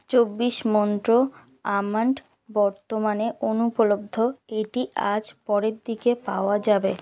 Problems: constant background noise